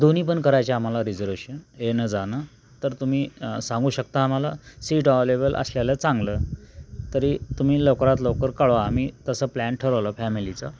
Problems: constant background noise